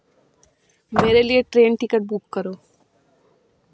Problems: background sounds at intervals